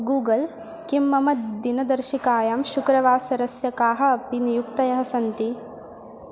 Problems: constant background noise